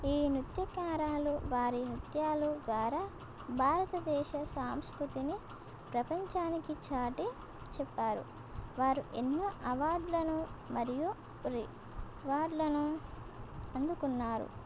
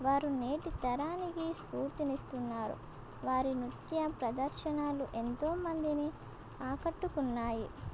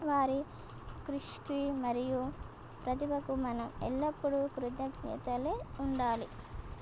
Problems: constant background noise